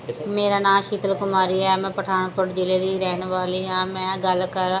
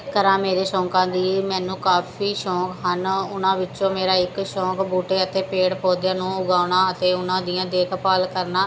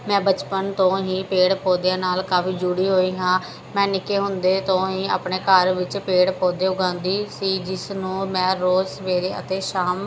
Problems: background sounds at intervals